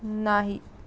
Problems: background sounds at intervals